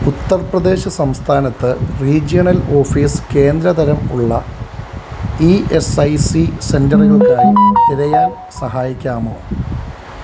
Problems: constant background noise